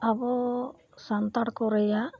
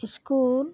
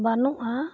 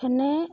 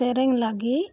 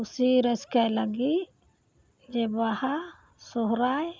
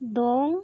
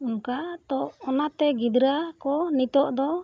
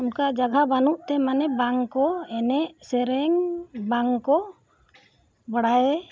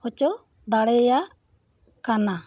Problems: none marked